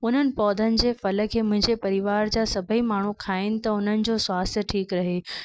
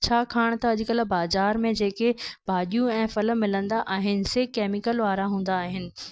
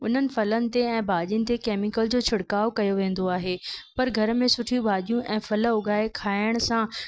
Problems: constant background noise